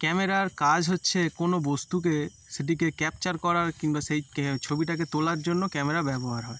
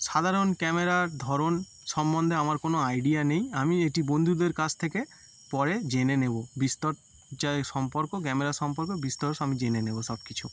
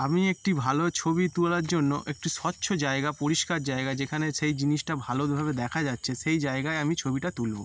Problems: none marked